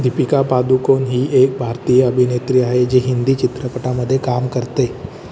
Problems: constant background noise